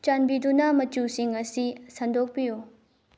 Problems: low volume